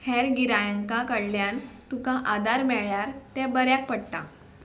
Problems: background sounds at intervals